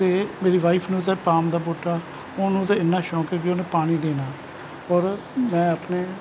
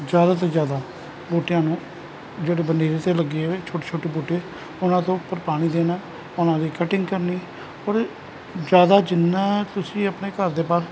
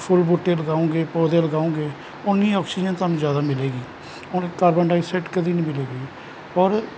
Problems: none marked